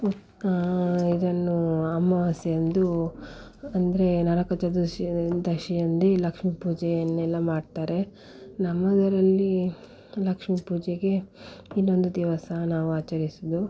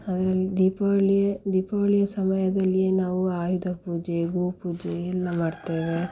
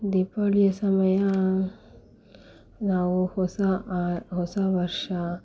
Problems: background sounds at intervals